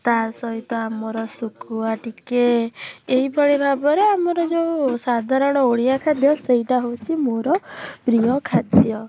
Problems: background sounds at intervals